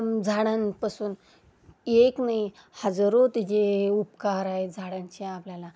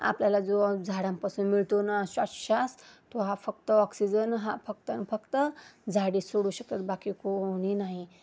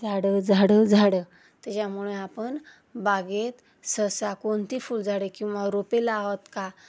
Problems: constant background noise